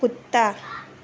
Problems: none marked